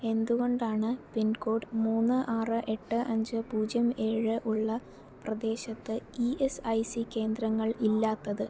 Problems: low volume